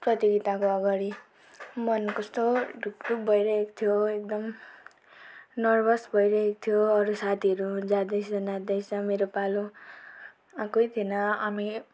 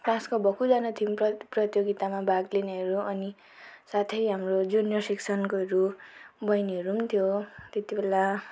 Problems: background sounds at intervals